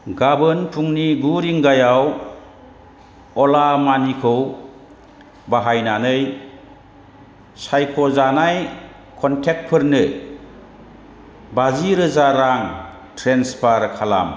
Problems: none marked